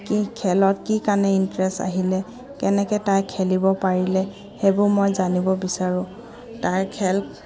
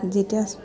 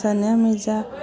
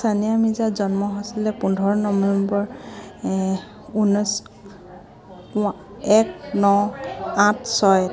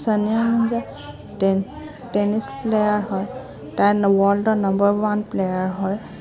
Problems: background sounds at intervals